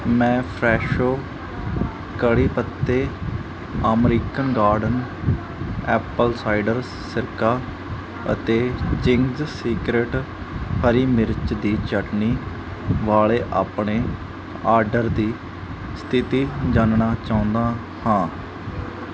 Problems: constant background noise